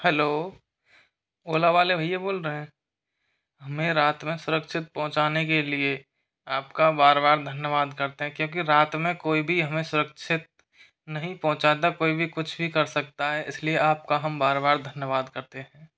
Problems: none marked